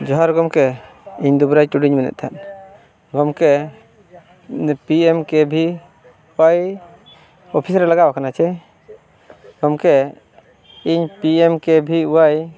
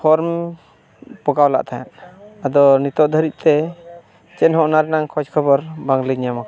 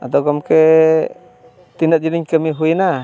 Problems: background conversations at intervals